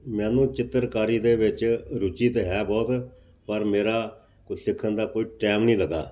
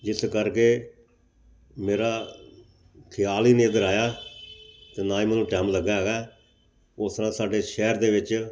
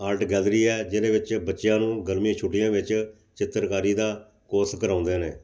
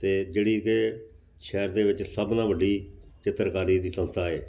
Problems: background sounds at intervals